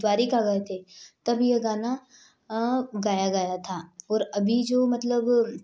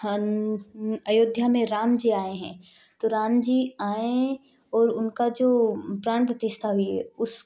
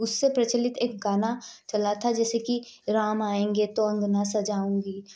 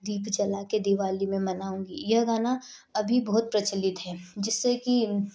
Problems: background sounds at intervals